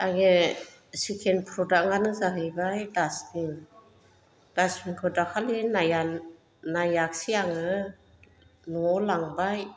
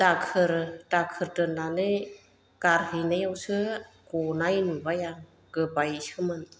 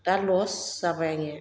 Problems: none marked